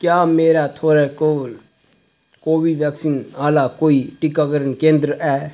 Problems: constant background noise